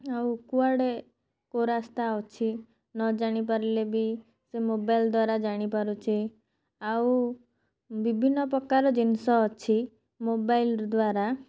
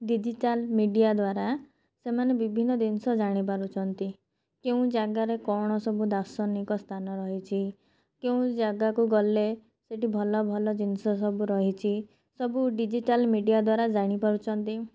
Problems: none marked